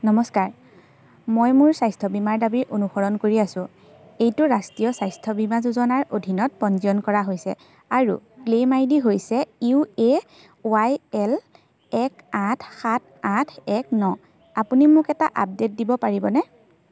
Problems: constant background noise